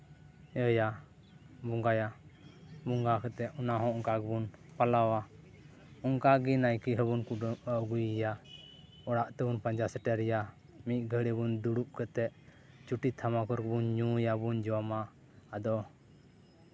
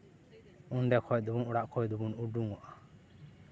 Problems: none marked